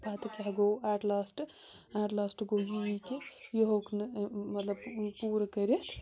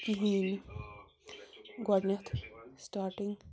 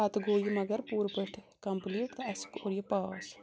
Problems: constant background noise